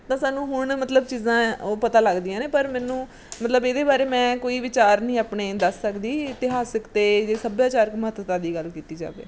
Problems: background sounds at intervals